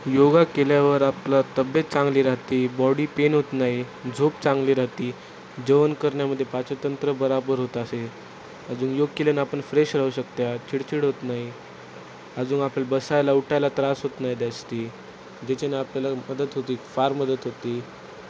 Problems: constant background noise